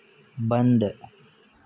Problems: none marked